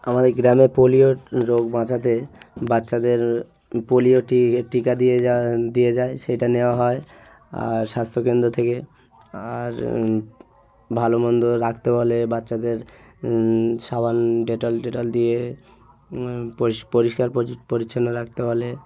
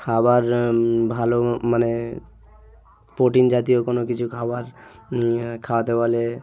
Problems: background conversations at intervals